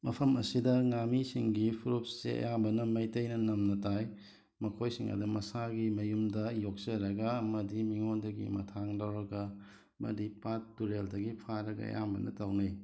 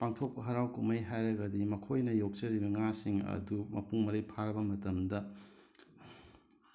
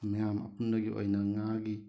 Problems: background sounds at intervals